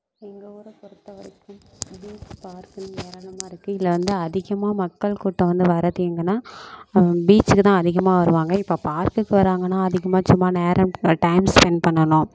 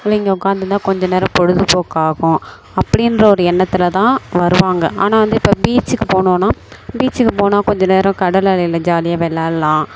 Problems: constant background noise